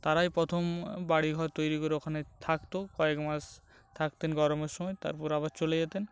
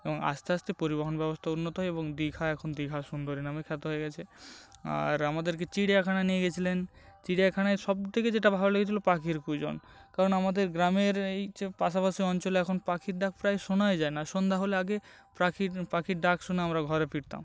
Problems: constant background noise